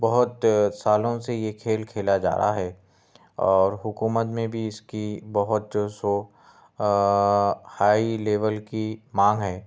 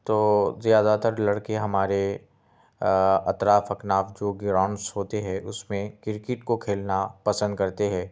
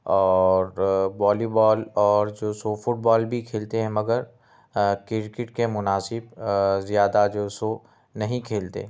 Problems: background sounds at intervals